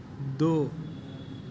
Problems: constant background noise